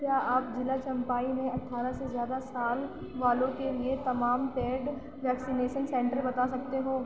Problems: constant background noise